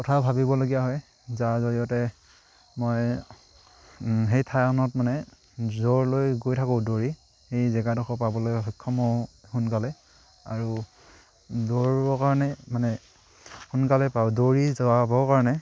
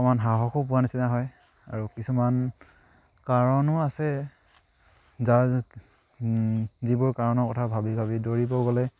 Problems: none marked